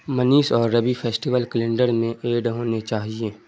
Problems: constant background noise